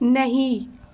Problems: none marked